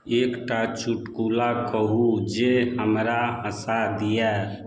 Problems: none marked